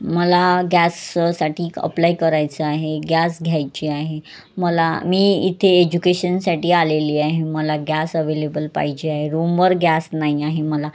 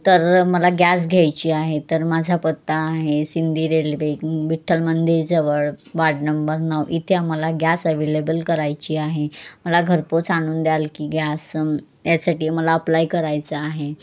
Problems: background sounds at intervals, background conversations at intervals